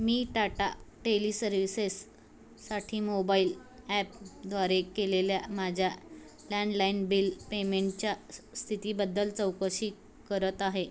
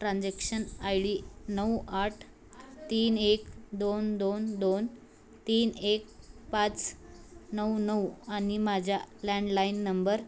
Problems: constant background noise